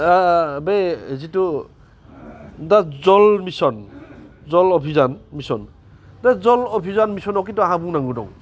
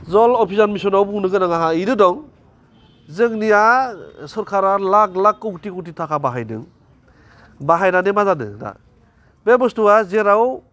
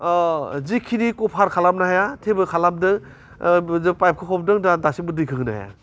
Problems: constant background noise